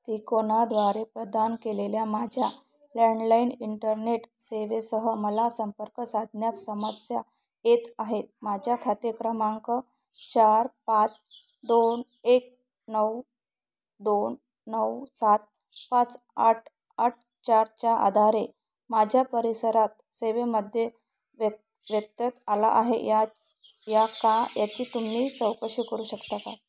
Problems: none marked